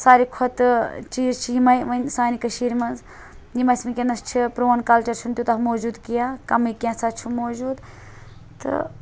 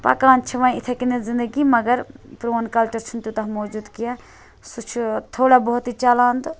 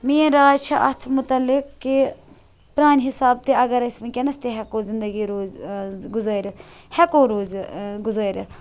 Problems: none marked